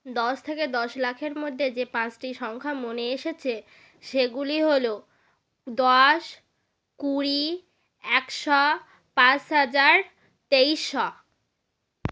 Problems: none marked